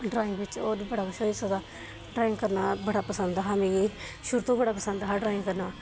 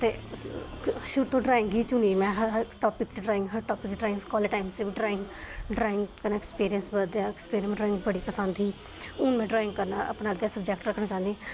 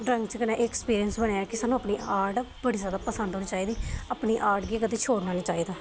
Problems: constant background noise